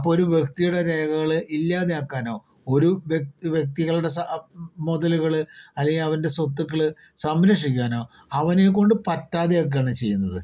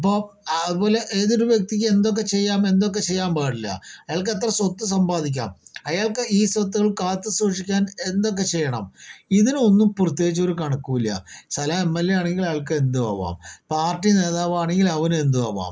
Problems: none marked